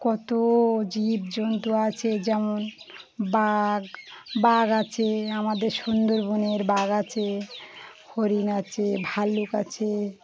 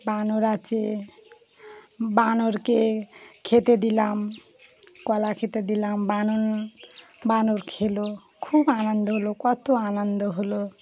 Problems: constant background noise, continuous background conversations